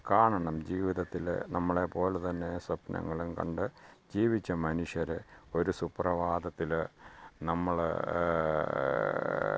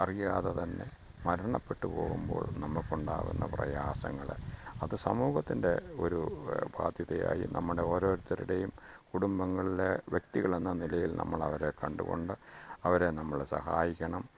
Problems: background sounds at intervals, low volume